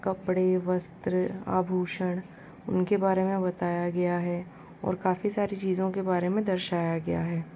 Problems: constant background noise